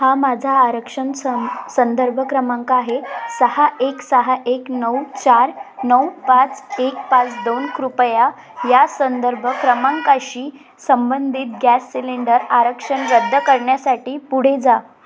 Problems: none marked